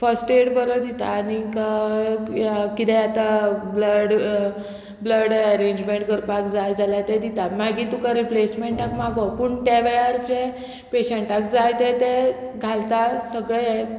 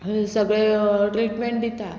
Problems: none marked